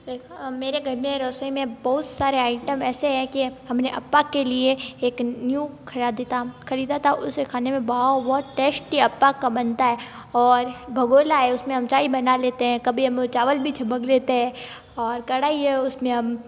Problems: constant background noise